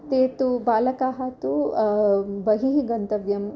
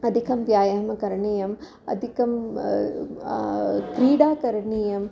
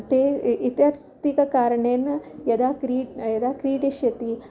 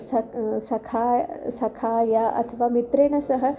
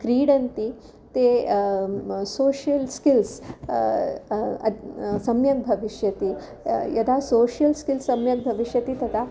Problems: constant background noise, background conversations at intervals